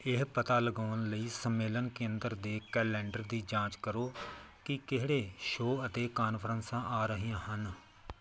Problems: background sounds at intervals